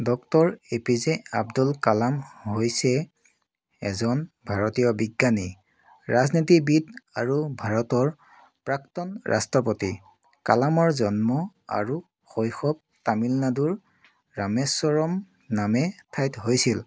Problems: background sounds at intervals